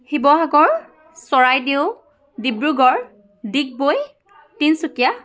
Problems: continuous background conversations